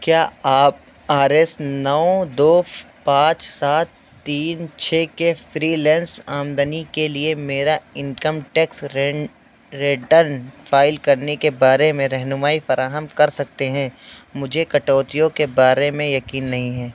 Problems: constant background noise